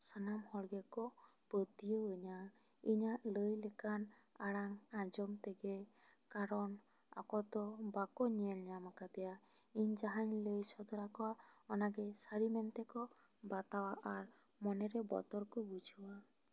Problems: low volume